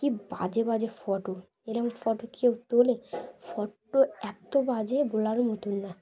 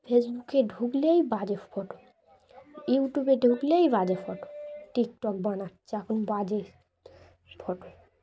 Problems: constant background noise, continuous background conversations